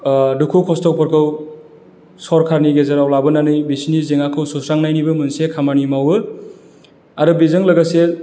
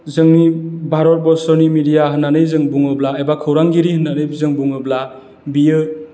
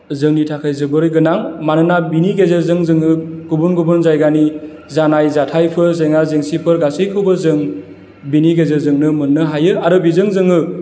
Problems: none marked